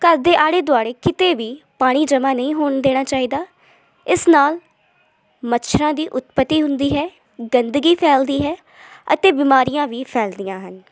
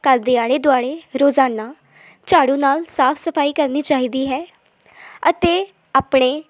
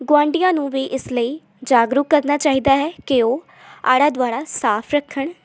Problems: none marked